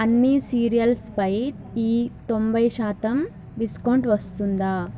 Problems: constant background noise, background conversations at intervals